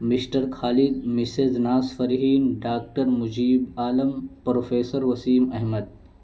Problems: constant background noise